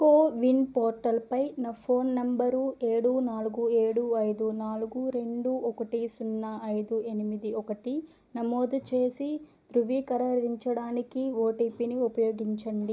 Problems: low volume